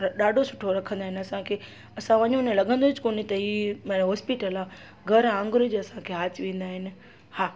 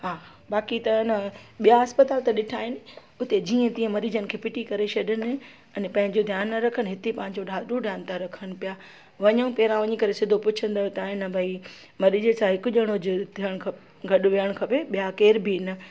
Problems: constant background noise